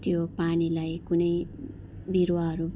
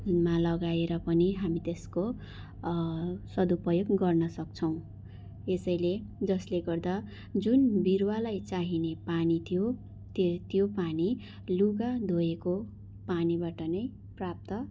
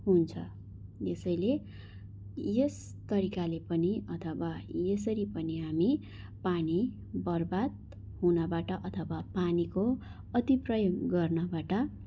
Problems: background sounds at intervals